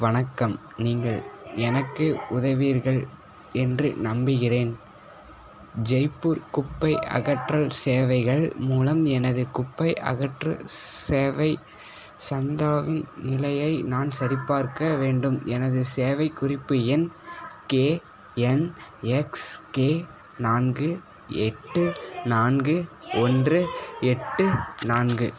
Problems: background conversations at intervals